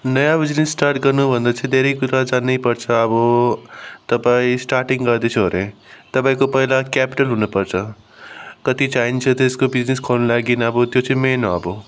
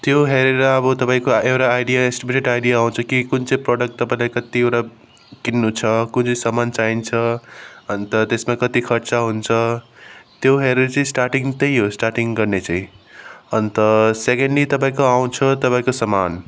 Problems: background sounds at intervals